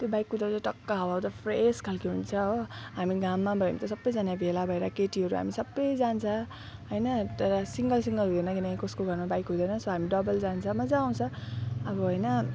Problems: constant background noise, background conversations at intervals